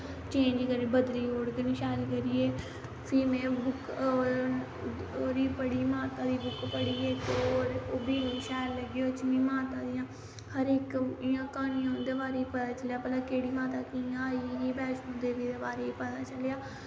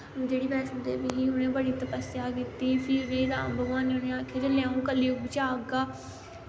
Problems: constant background noise